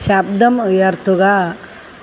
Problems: constant background noise